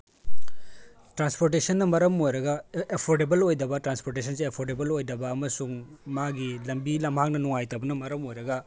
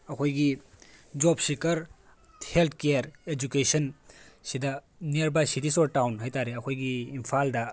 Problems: background sounds at intervals